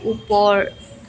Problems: constant background noise, continuous background conversations